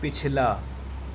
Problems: constant background noise